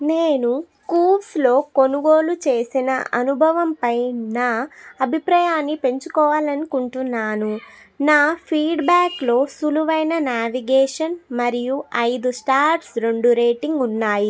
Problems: background sounds at intervals, background conversations at intervals